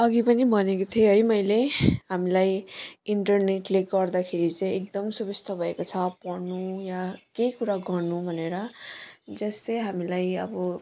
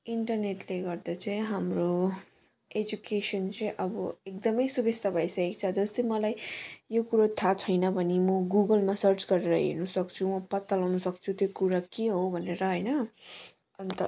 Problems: continuous background conversations